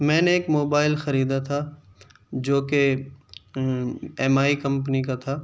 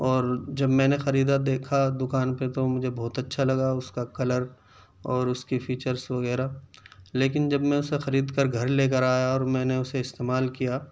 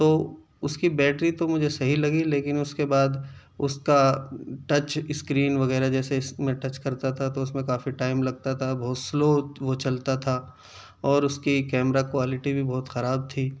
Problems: none marked